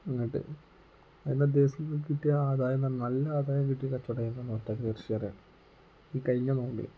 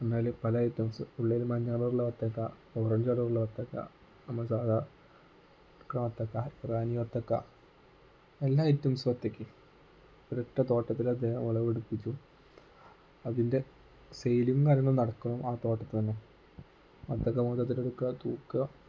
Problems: low volume